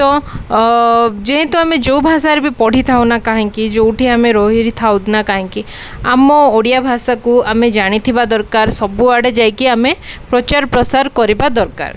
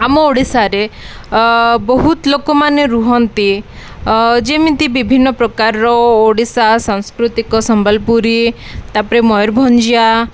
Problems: none marked